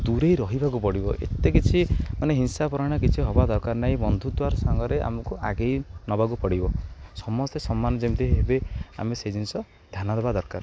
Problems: none marked